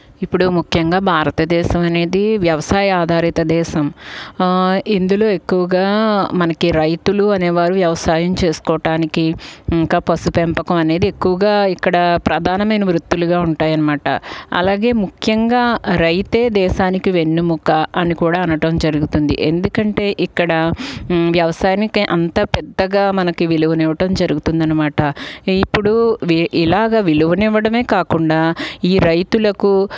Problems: background sounds at intervals